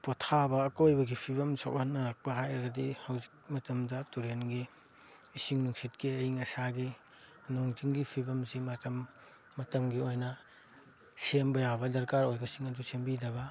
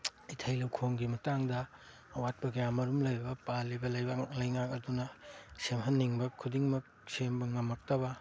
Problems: background sounds at intervals